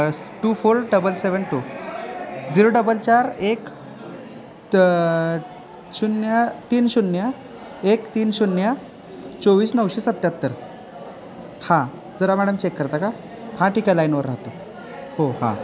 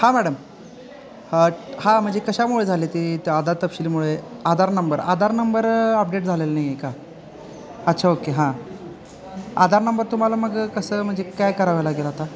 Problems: constant background noise, continuous background conversations